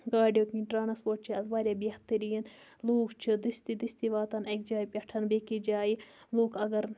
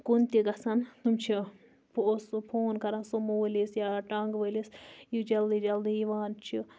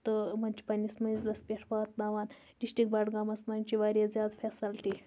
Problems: none marked